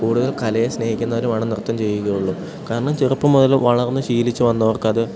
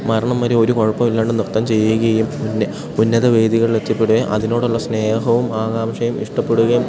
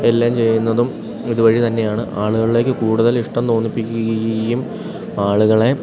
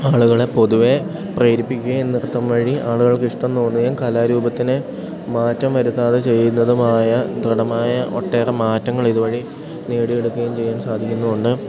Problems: none marked